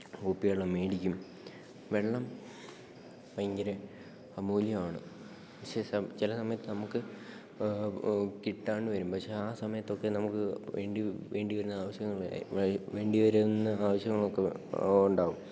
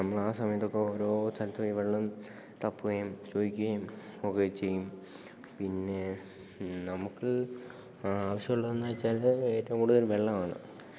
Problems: low volume